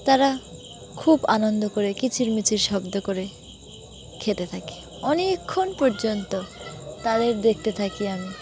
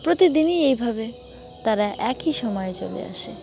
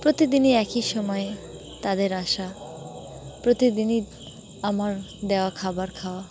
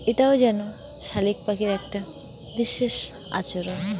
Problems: constant background noise, continuous background conversations